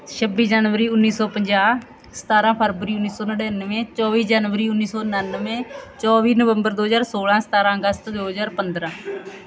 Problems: background sounds at intervals, background conversations at intervals